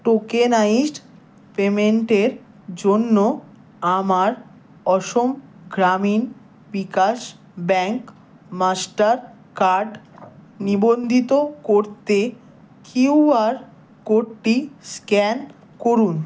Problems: none marked